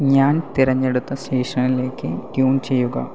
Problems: constant background noise